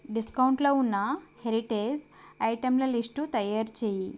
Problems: constant background noise